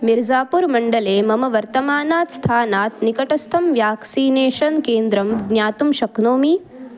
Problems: continuous background conversations